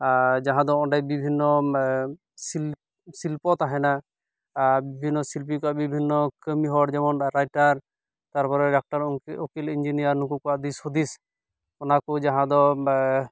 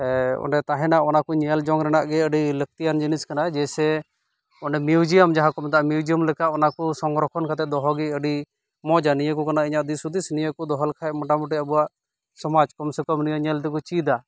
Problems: background sounds at intervals